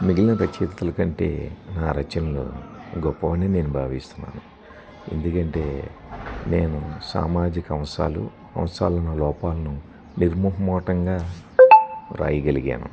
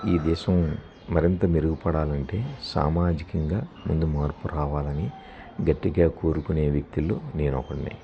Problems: none marked